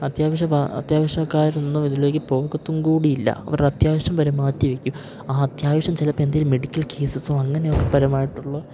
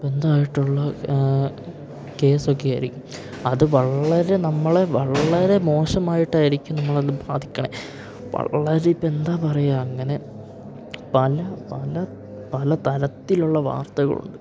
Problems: constant background noise